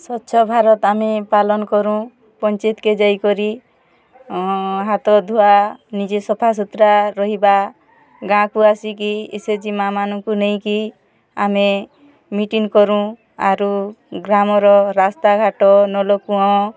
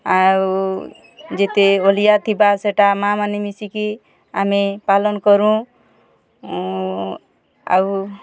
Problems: constant background noise, continuous background conversations